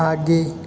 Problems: constant background noise